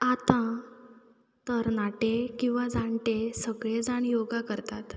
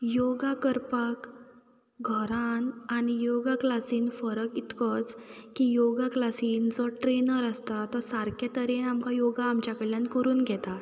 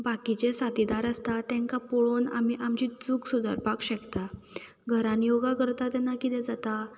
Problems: background sounds at intervals